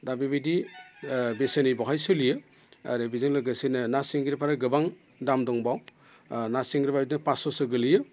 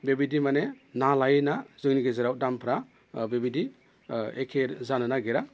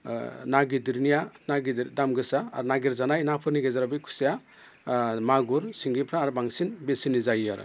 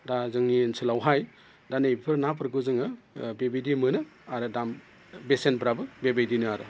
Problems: constant background noise